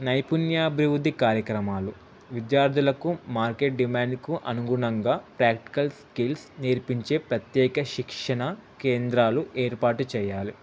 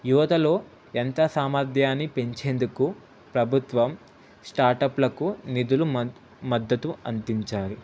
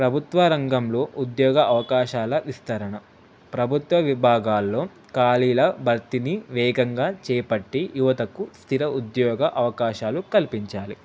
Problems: constant background noise